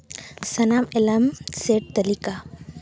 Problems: constant background noise